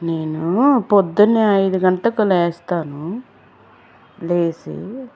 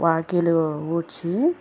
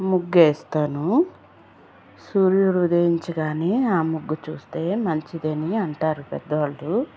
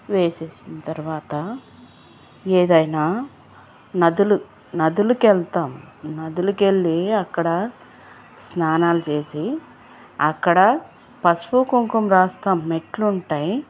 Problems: constant background noise